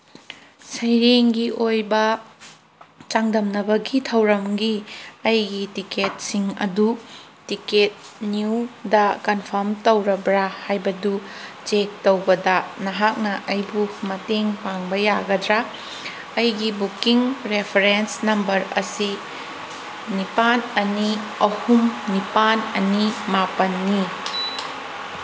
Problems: background sounds at intervals